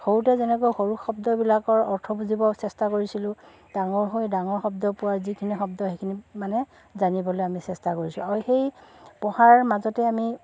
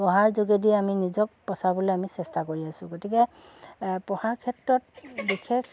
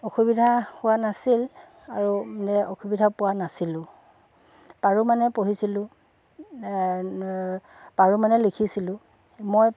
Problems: constant background noise, background conversations at intervals